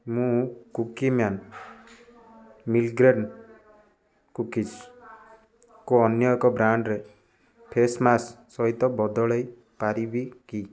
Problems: constant background noise, continuous background conversations